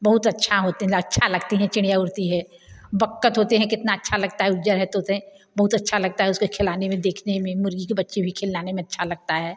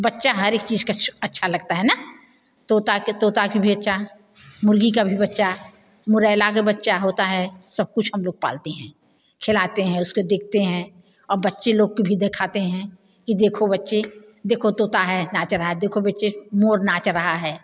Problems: none marked